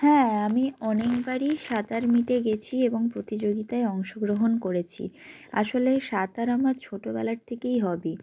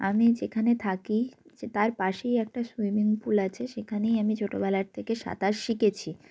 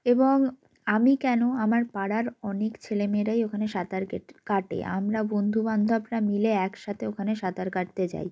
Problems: background sounds at intervals, background conversations at intervals